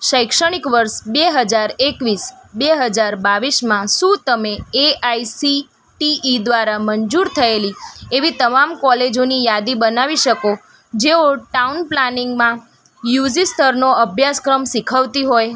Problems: background sounds at intervals